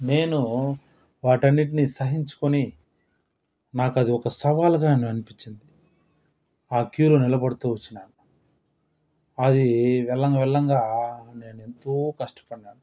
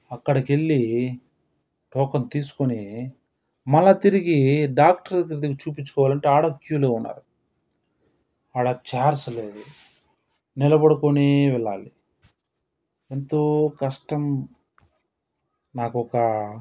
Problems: none marked